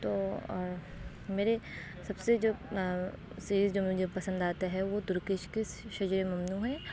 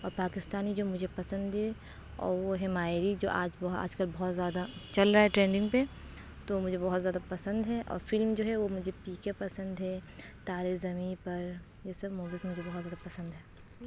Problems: constant background noise